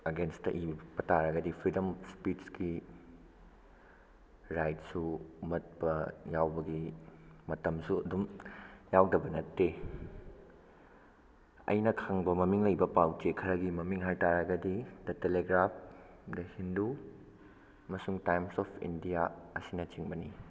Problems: background sounds at intervals